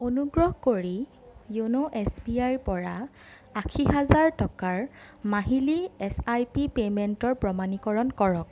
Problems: none marked